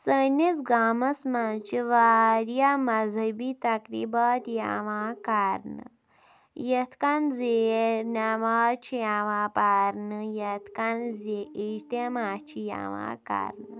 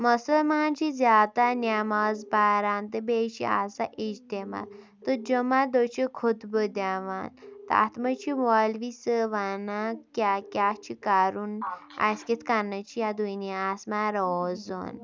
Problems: background sounds at intervals